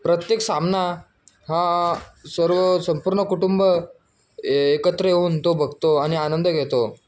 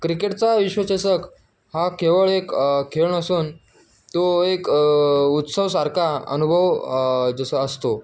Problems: none marked